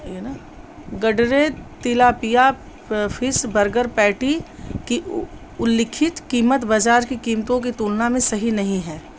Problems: constant background noise